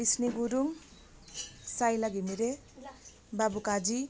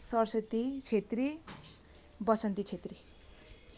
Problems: constant background noise